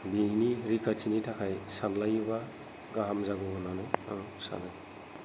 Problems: none marked